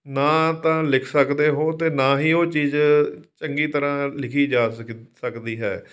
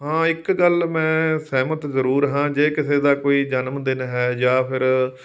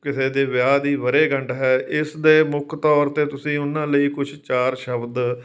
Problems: background sounds at intervals